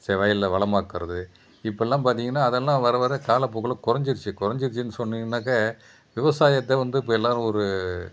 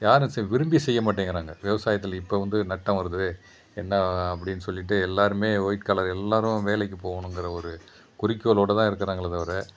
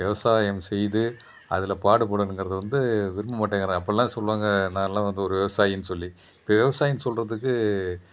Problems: constant background noise